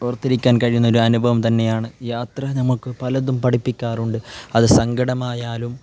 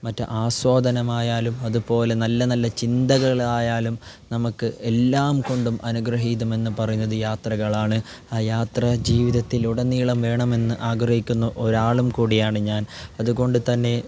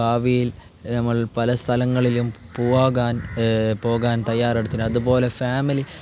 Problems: none marked